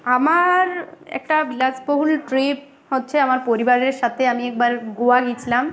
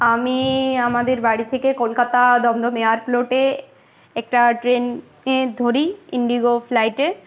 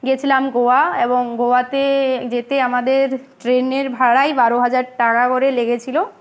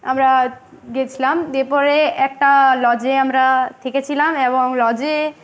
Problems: constant background noise, continuous background conversations